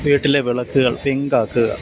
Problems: none marked